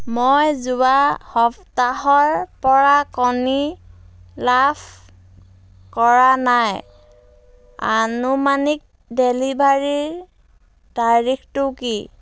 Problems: background sounds at intervals